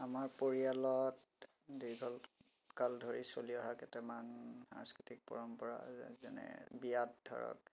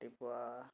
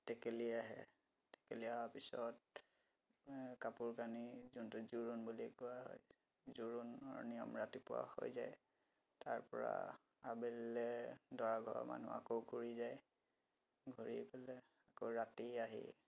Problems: background sounds at intervals